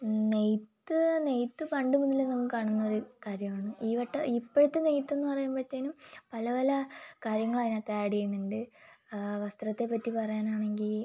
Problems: low volume